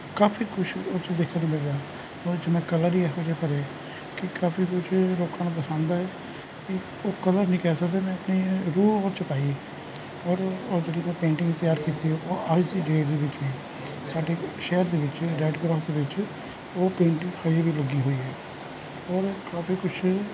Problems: none marked